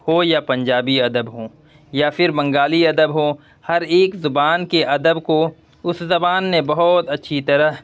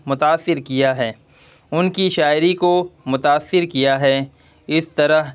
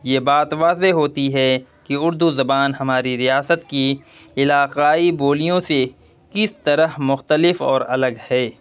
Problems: none marked